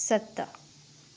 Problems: constant background noise